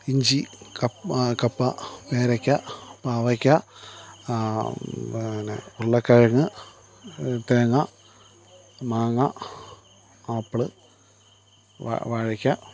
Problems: none marked